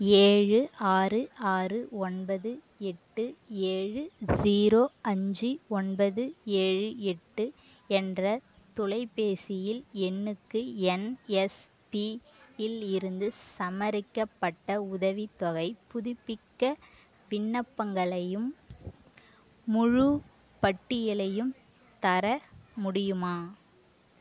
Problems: none marked